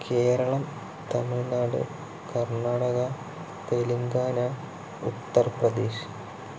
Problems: low volume